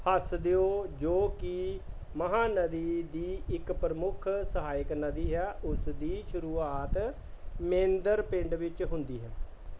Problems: background sounds at intervals